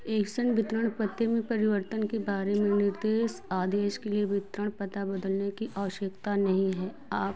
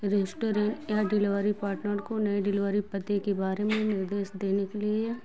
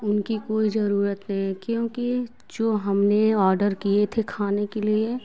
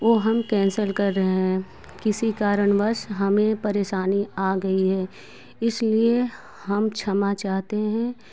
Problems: constant background noise